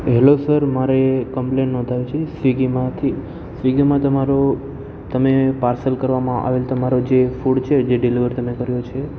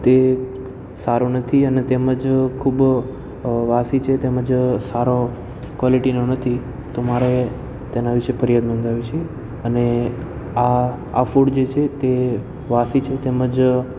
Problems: constant background noise